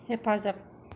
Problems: none marked